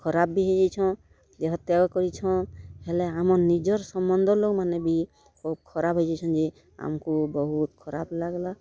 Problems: constant background noise, continuous background conversations